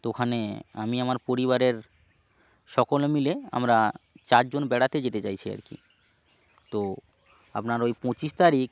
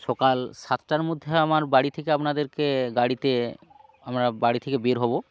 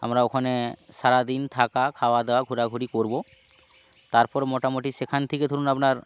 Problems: none marked